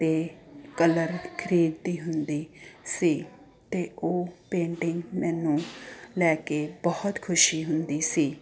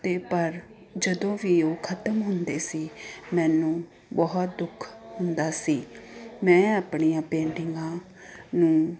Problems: constant background noise